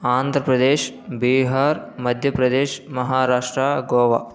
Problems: none marked